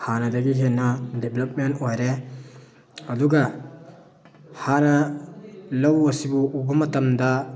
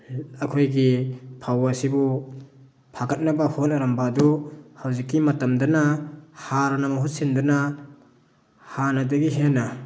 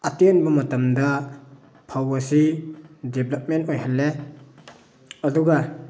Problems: background sounds at intervals, background conversations at intervals